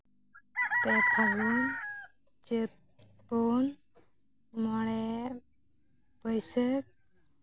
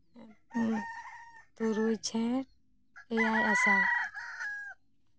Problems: constant background noise